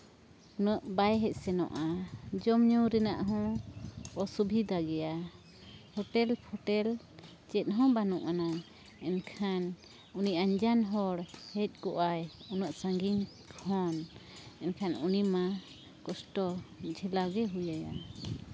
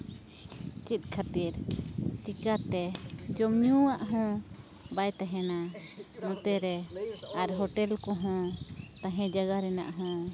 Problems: background conversations at intervals